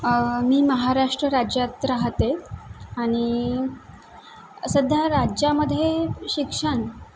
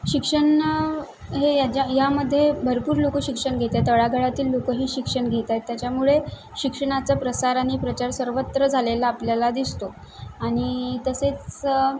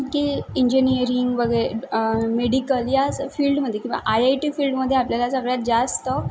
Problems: background sounds at intervals